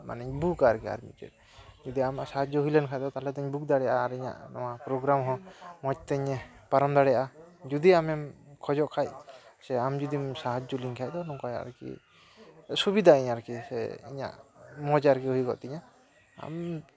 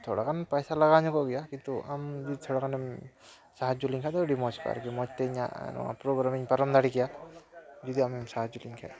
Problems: none marked